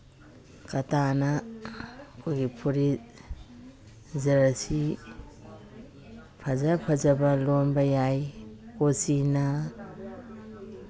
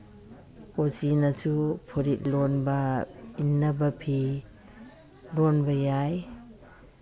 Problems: background sounds at intervals, background conversations at intervals